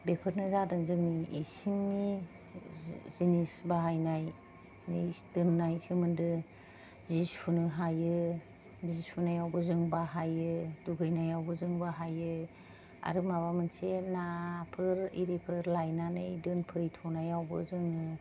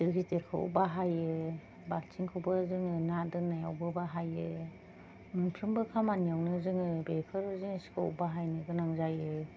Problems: low volume